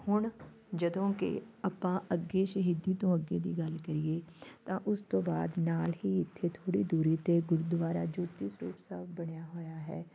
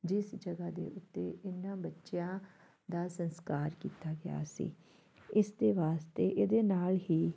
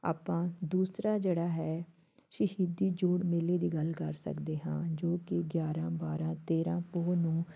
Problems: background sounds at intervals, background conversations at intervals